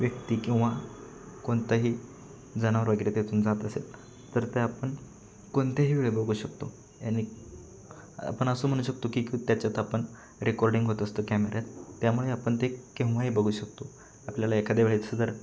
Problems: constant background noise